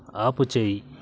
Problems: background sounds at intervals